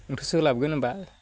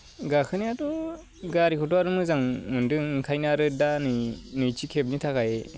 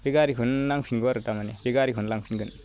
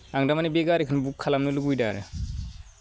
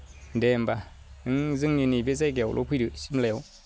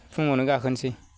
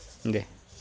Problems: none marked